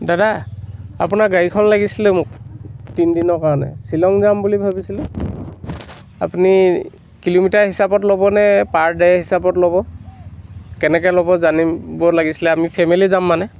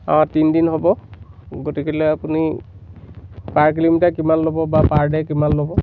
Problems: constant background noise